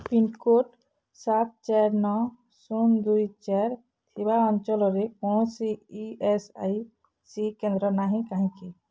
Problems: none marked